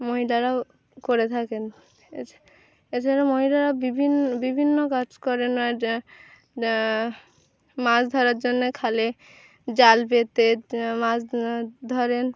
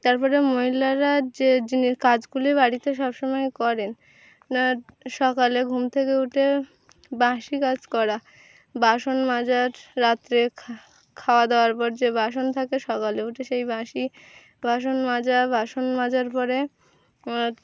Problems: none marked